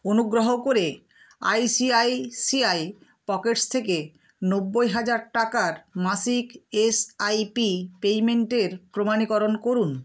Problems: constant background noise